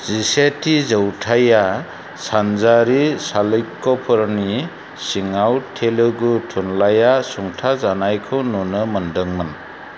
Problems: constant background noise